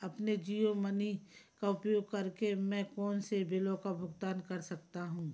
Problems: background sounds at intervals, low volume